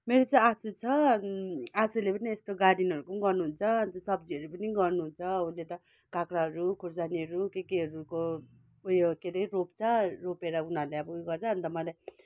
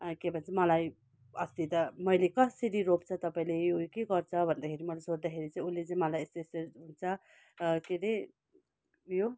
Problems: none marked